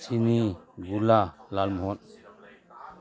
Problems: constant background noise